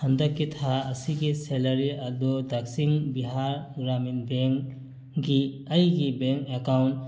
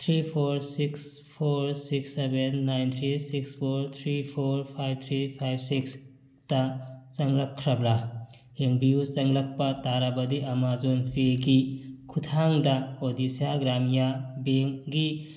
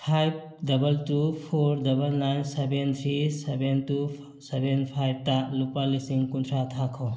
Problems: none marked